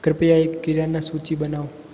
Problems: constant background noise